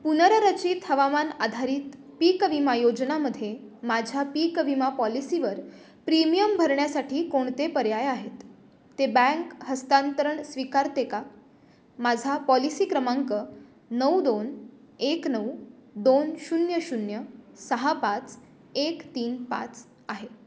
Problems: constant background noise